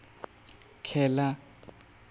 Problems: none marked